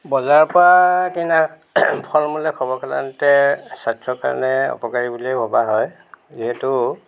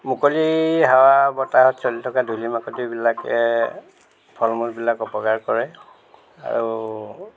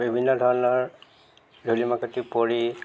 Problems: background sounds at intervals